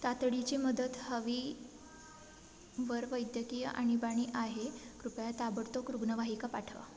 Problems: constant background noise, continuous background conversations